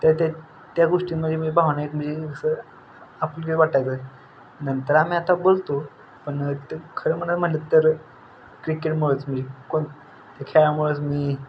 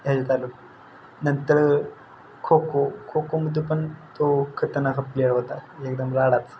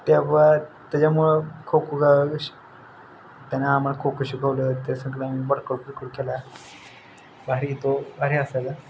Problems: none marked